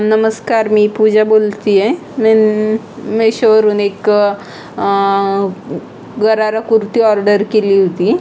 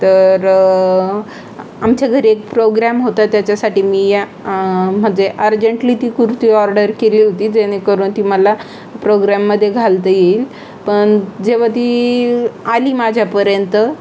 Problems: constant background noise, background conversations at intervals